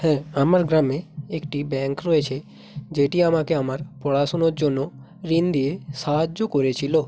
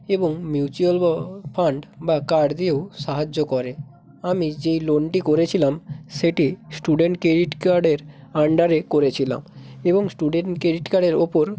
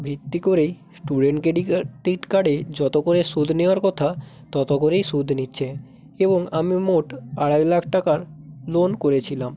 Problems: constant background noise